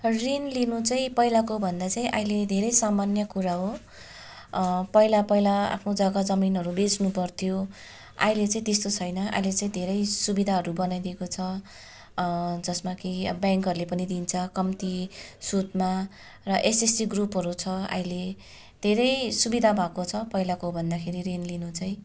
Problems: constant background noise